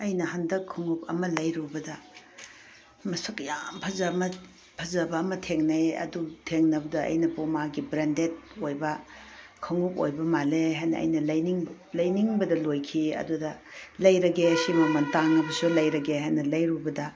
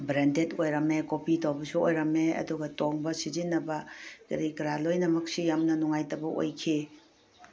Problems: none marked